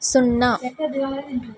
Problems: background conversations at intervals